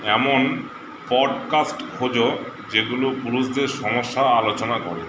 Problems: constant background noise